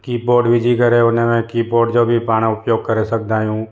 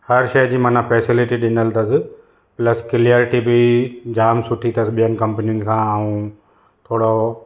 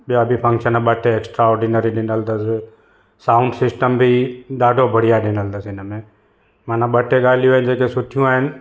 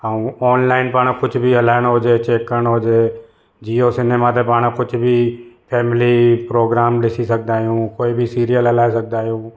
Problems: none marked